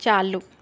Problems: none marked